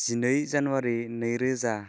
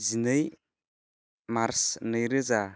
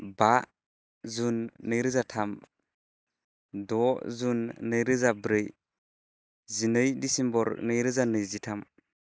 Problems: constant background noise